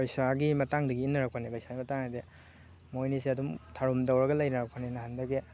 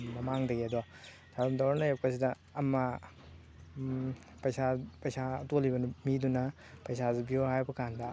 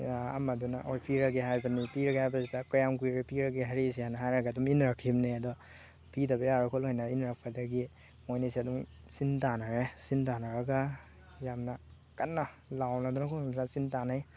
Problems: constant background noise